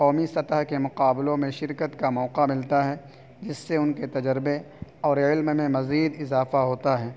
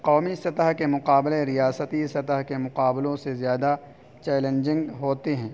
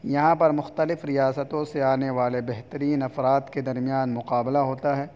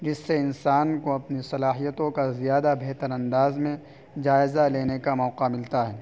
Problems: constant background noise